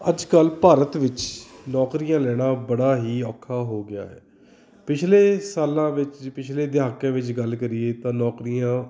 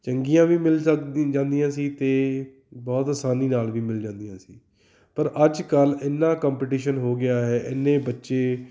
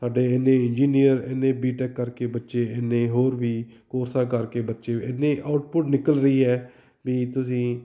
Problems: background sounds at intervals, background conversations at intervals